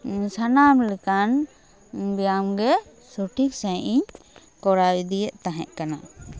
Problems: background sounds at intervals, background conversations at intervals